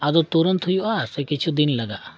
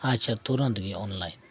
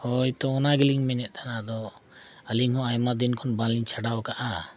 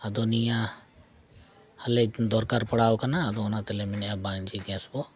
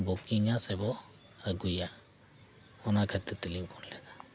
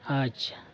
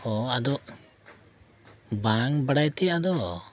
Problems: none marked